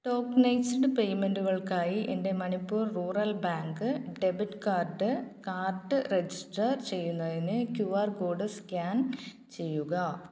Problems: none marked